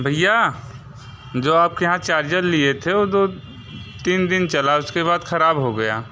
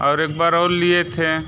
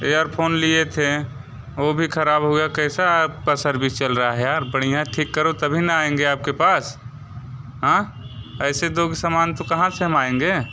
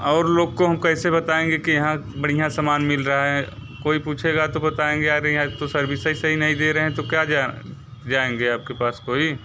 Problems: background sounds at intervals